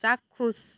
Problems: none marked